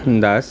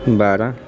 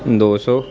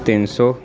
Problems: continuous background conversations